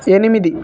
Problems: constant background noise